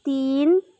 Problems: constant background noise